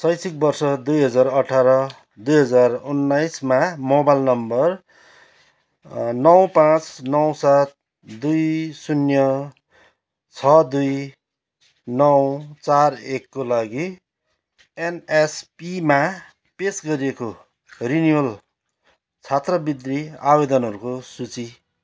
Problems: background sounds at intervals